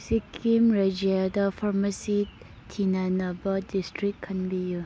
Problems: none marked